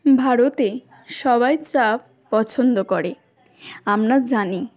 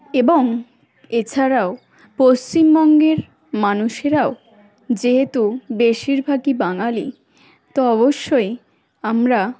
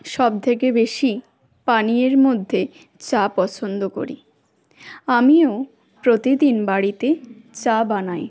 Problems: background sounds at intervals